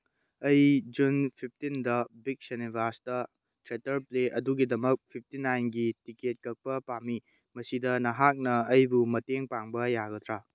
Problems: none marked